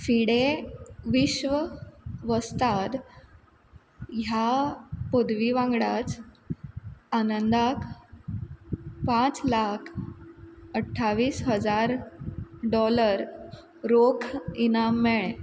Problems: constant background noise